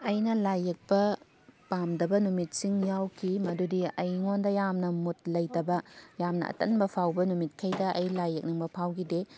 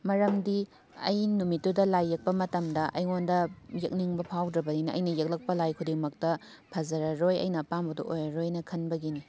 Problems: background sounds at intervals